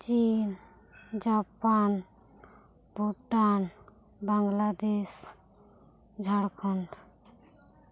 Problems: none marked